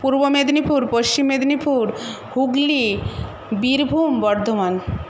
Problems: constant background noise